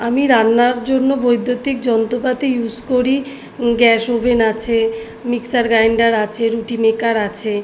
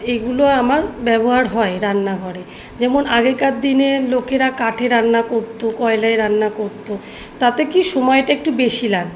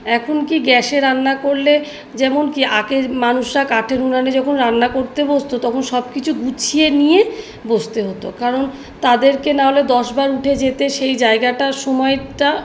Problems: background sounds at intervals